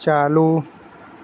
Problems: none marked